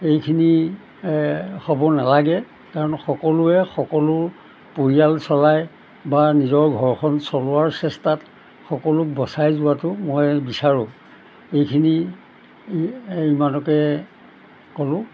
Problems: none marked